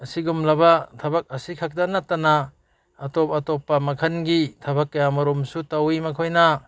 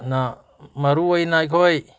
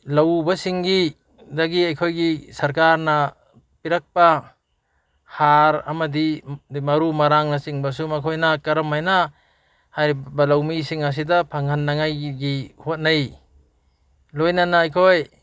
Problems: none marked